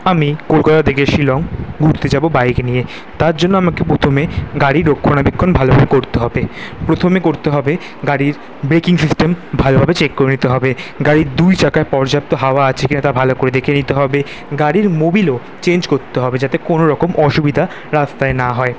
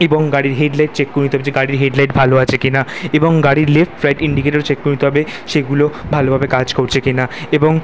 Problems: background sounds at intervals